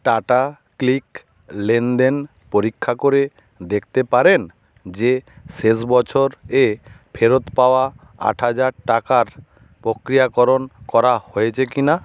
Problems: constant background noise